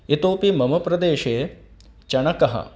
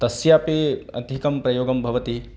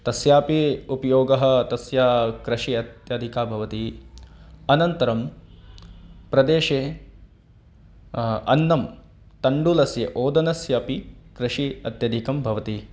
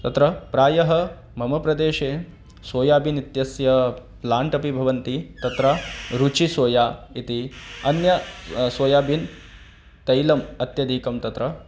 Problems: none marked